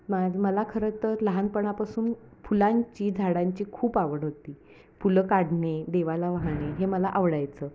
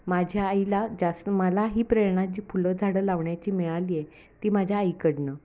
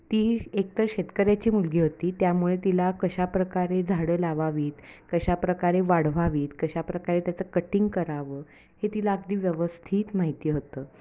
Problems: constant background noise